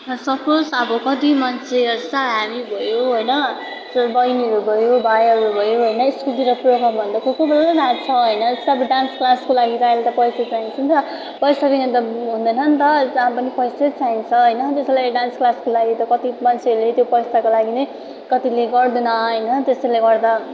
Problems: constant background noise